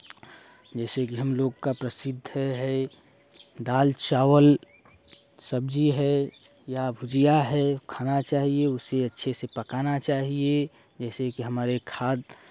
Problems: none marked